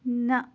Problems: none marked